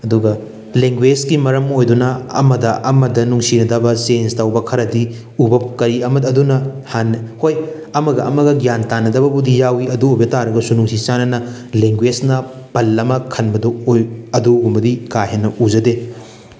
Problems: background sounds at intervals